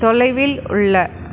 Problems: constant background noise